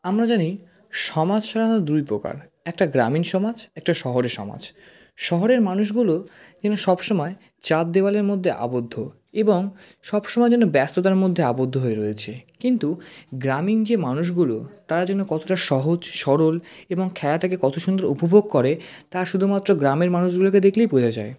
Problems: constant background noise